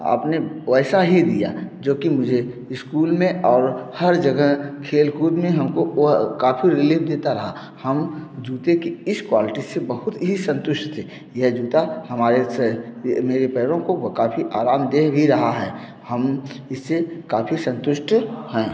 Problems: none marked